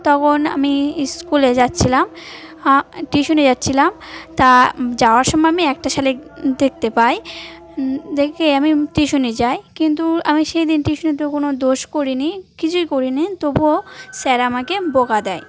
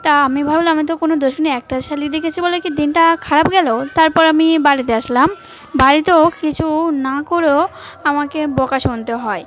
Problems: none marked